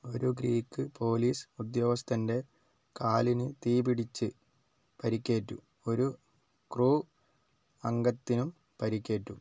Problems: low volume